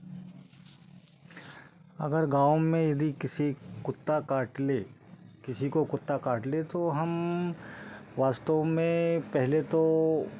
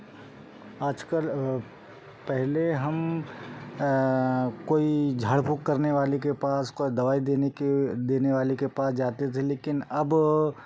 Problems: background sounds at intervals